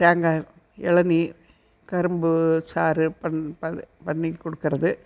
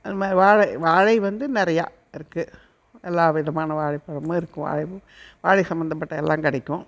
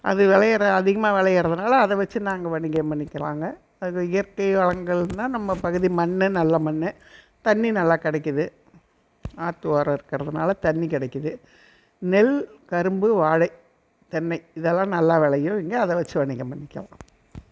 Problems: none marked